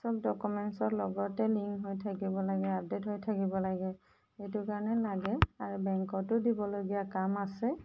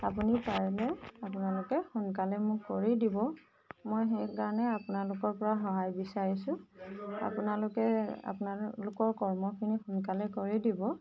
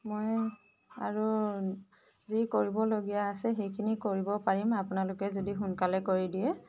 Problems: constant background noise